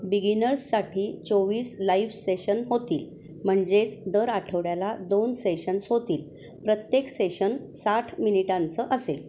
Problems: constant background noise, continuous background conversations